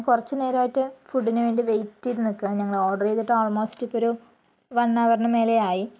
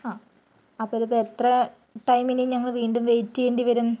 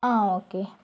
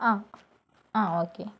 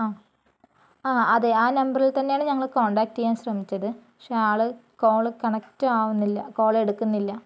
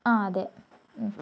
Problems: none marked